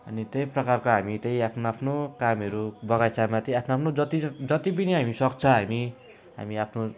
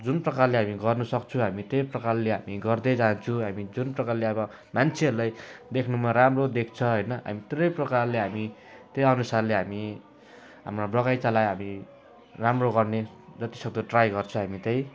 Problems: none marked